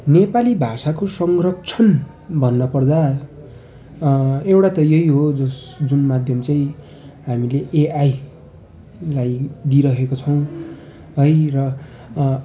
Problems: constant background noise, continuous background conversations